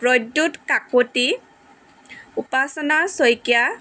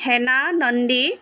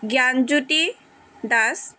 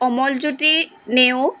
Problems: constant background noise, background conversations at intervals